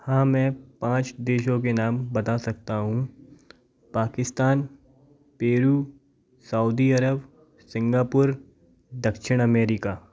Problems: none marked